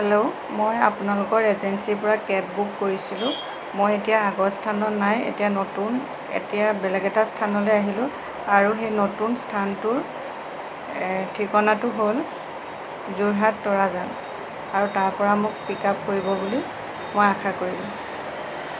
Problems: constant background noise